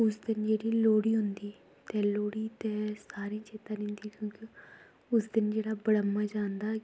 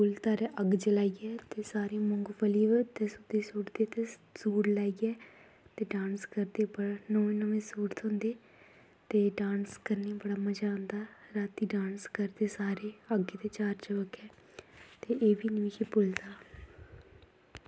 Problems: background sounds at intervals, low volume